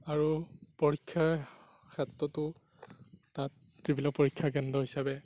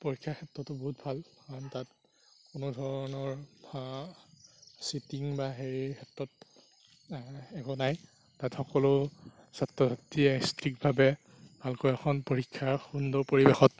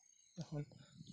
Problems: background sounds at intervals